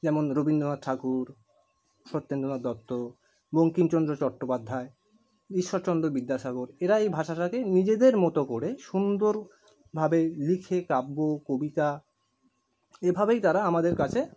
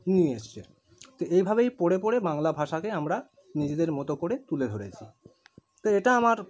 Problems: none marked